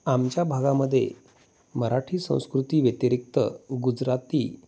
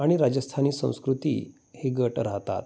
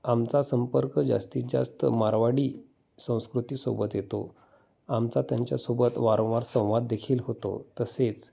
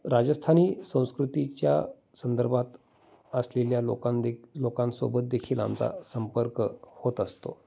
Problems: constant background noise